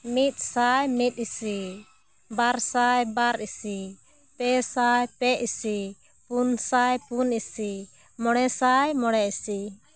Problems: none marked